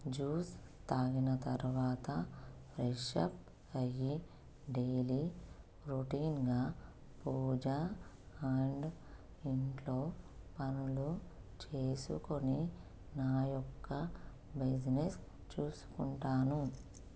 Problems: constant background noise